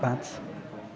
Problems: none marked